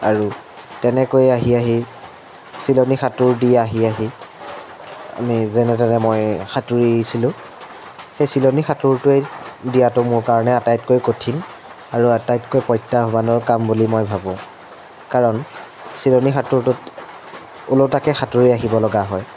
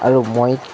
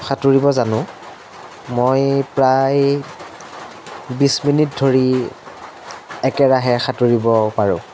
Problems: constant background noise